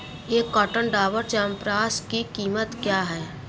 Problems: background sounds at intervals